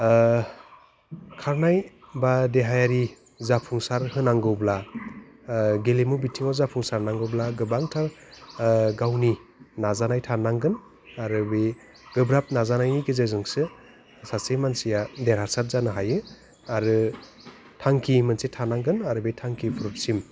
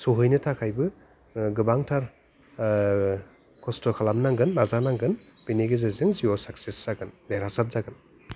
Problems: low volume